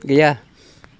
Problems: none marked